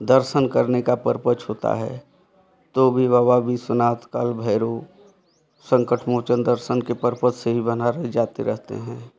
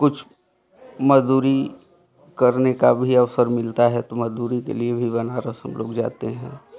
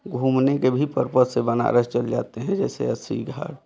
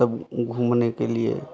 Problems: constant background noise, background conversations at intervals